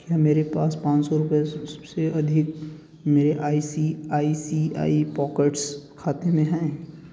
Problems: constant background noise